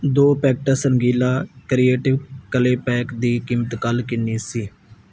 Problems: background sounds at intervals